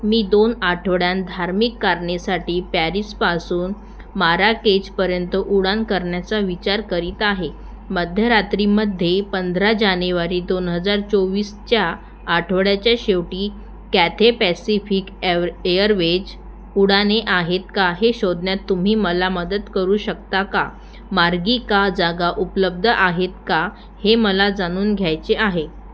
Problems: none marked